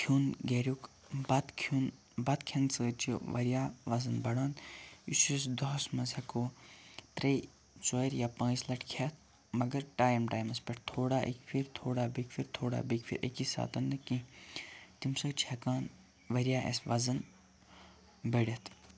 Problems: background sounds at intervals, low volume